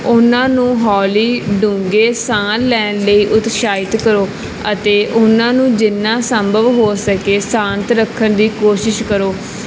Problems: none marked